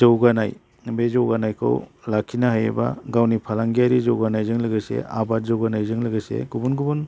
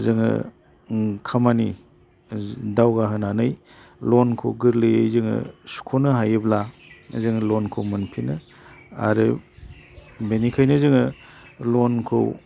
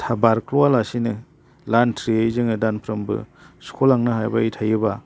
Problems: none marked